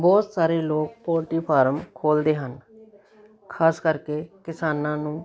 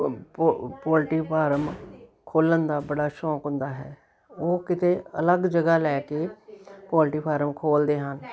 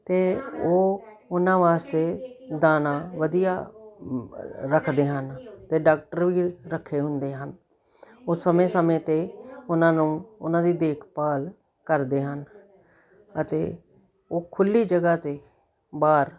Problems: continuous background conversations